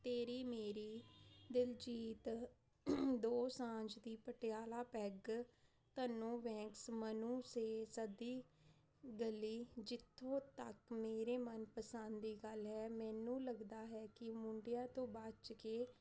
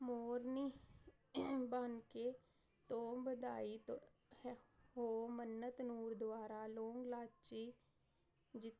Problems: constant background noise